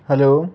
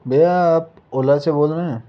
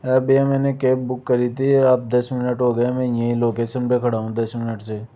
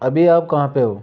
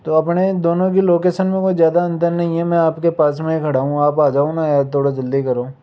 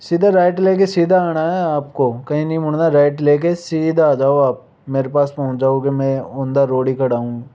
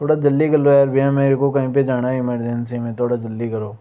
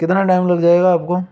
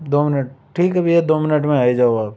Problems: none marked